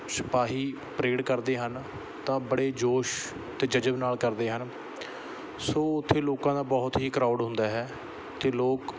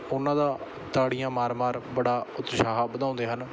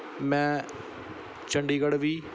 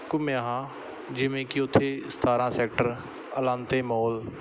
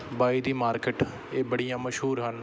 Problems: background sounds at intervals